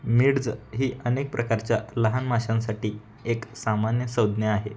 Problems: background sounds at intervals